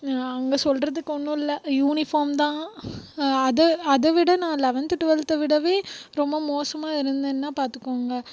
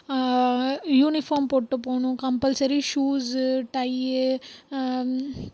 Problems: background sounds at intervals